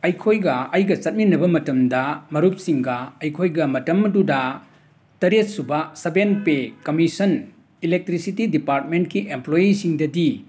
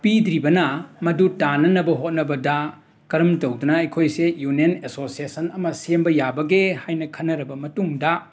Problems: background sounds at intervals, background conversations at intervals